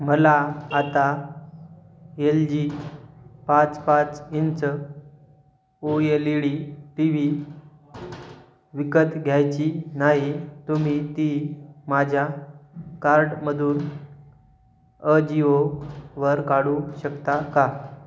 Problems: background sounds at intervals